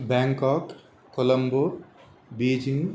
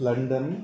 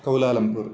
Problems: constant background noise